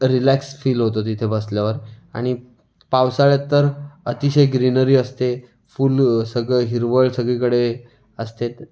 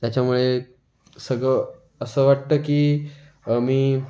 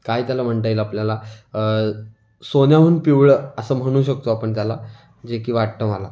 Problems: constant background noise